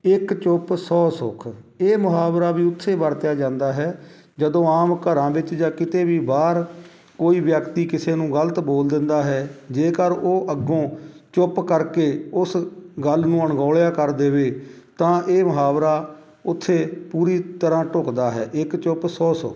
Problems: none marked